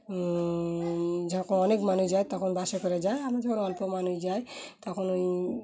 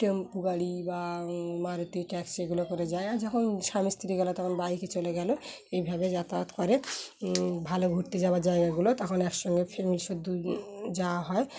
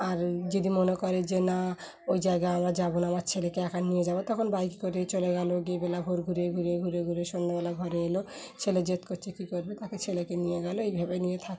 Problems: constant background noise, background conversations at intervals